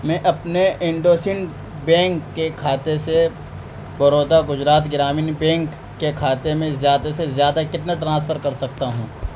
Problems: constant background noise